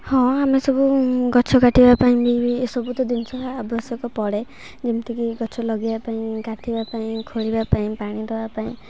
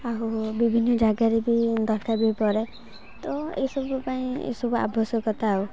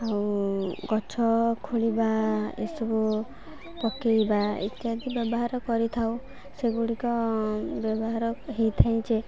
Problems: constant background noise, continuous background conversations